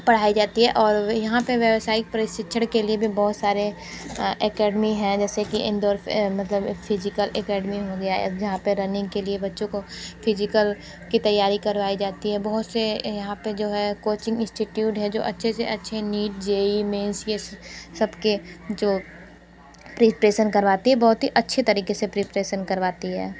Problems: none marked